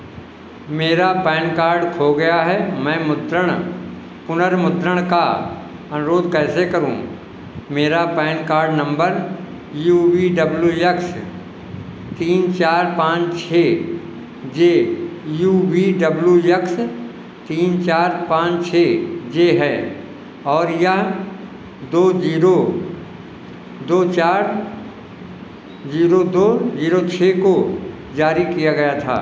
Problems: constant background noise